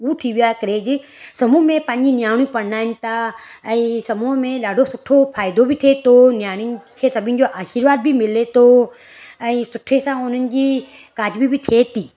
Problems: none marked